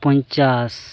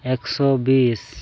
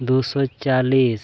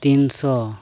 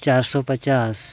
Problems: none marked